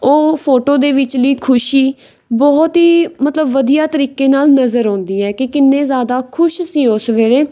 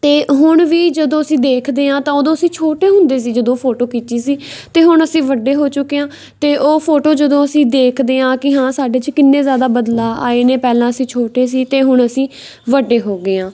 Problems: background sounds at intervals